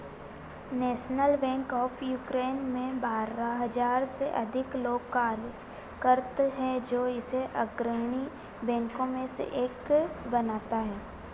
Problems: constant background noise